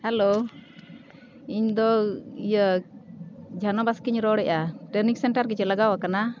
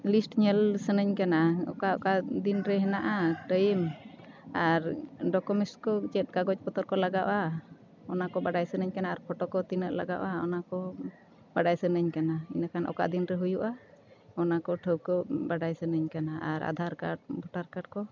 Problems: constant background noise